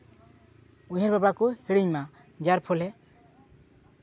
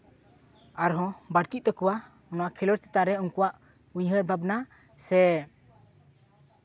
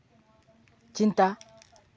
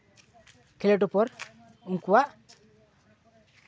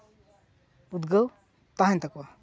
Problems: background sounds at intervals, continuous background conversations